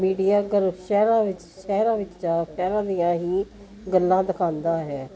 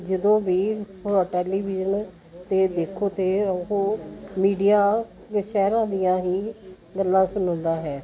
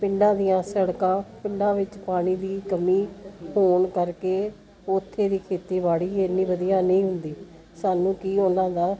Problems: continuous background conversations